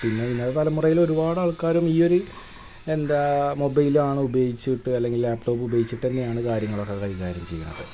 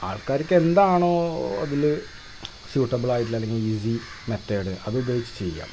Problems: constant background noise